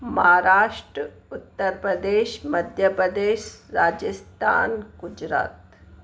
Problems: constant background noise, echo